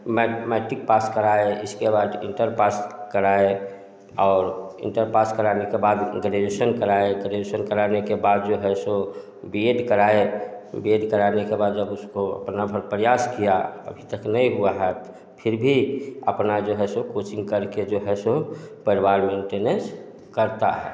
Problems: background sounds at intervals, continuous background conversations, echo